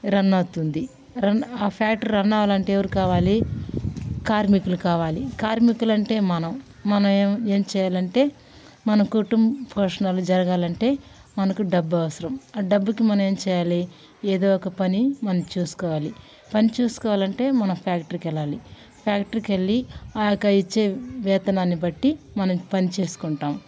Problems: none marked